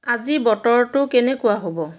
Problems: background conversations at intervals